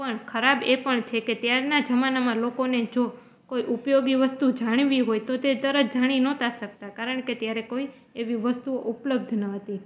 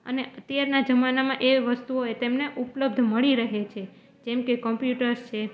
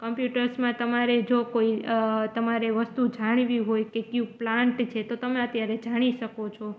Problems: background sounds at intervals